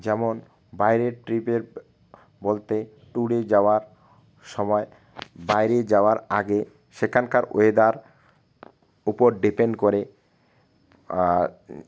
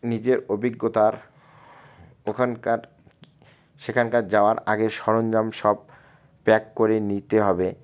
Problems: constant background noise